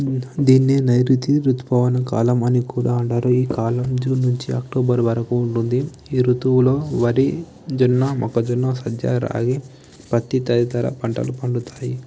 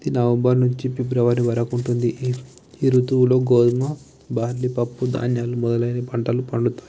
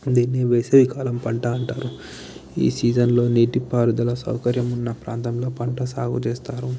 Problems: background conversations at intervals, low volume